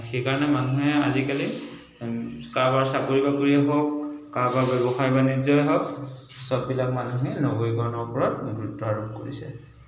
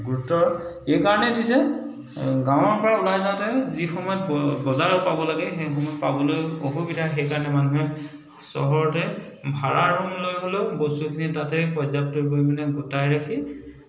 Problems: constant background noise, background conversations at intervals